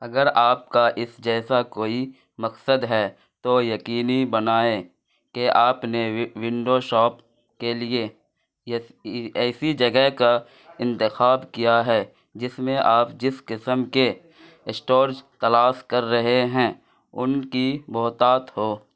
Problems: none marked